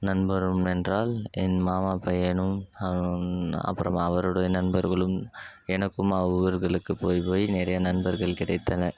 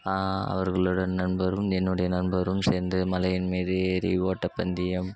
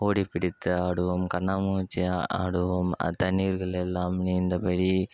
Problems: none marked